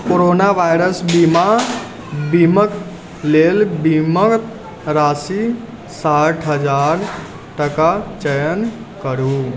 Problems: none marked